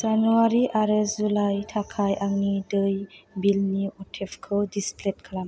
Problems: low volume